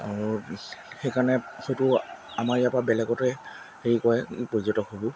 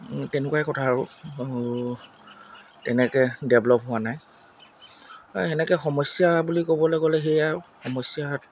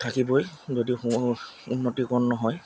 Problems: constant background noise